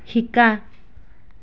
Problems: constant background noise